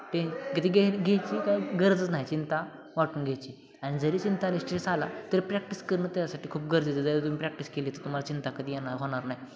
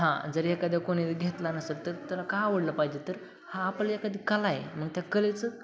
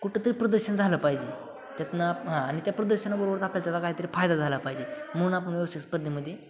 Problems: constant background noise, background conversations at intervals